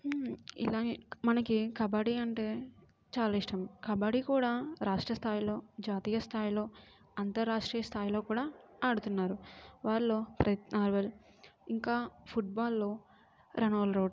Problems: none marked